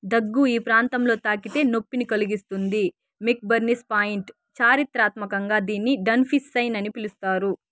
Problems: background sounds at intervals